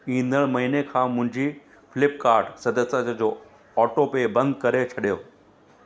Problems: constant background noise, echo